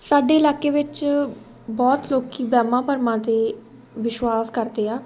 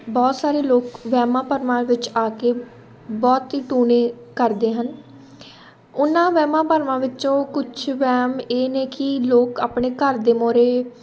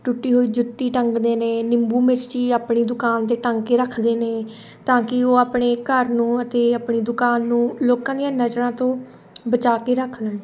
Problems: constant background noise, background conversations at intervals